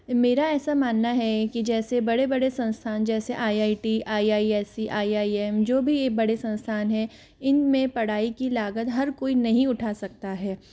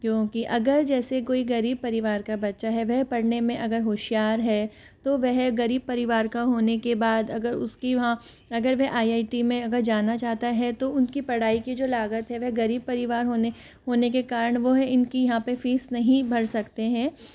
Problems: background sounds at intervals